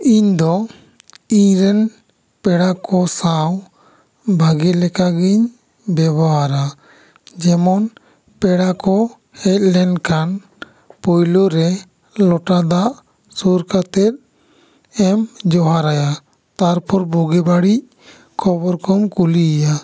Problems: echo